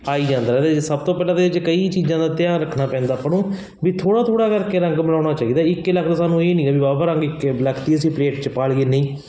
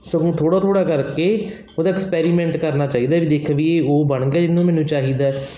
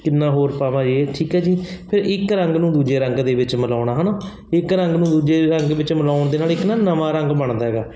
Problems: constant background noise